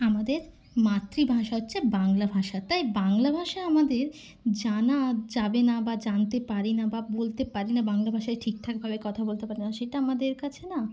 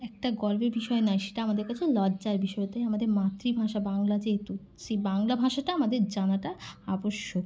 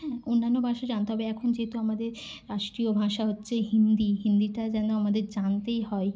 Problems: none marked